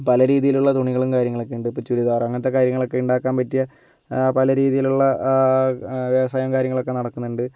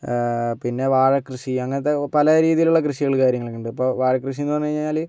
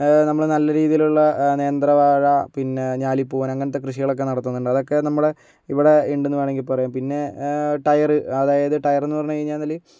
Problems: none marked